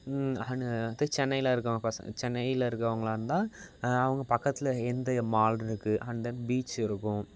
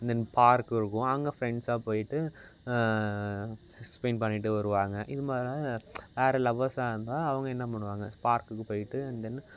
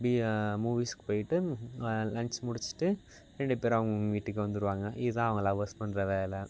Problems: constant background noise